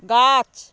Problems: constant background noise